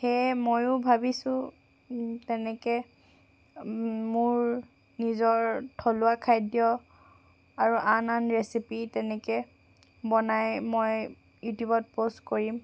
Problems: none marked